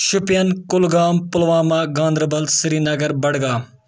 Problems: none marked